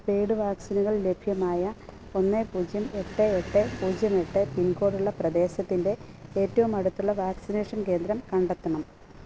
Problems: constant background noise